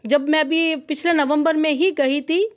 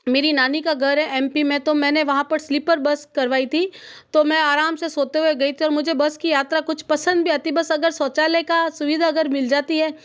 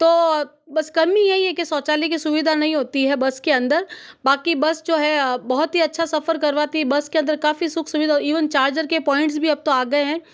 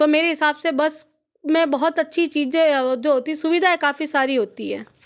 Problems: none marked